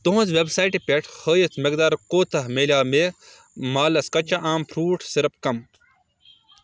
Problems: background sounds at intervals